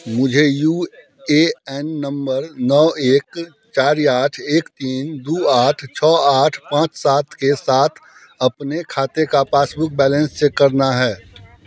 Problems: constant background noise